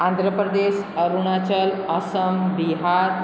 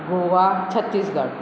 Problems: constant background noise, echo